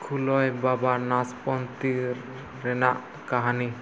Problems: constant background noise